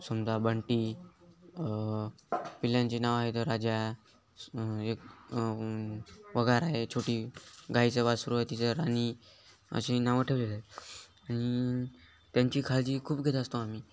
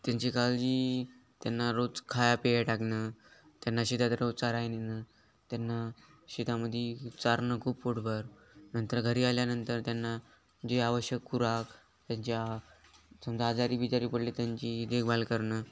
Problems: none marked